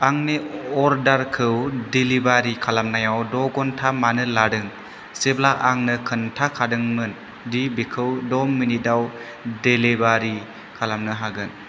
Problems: constant background noise